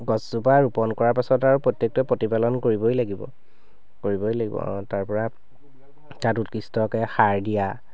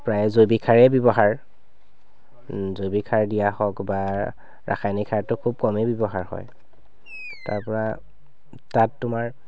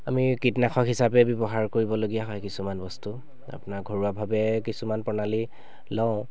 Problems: none marked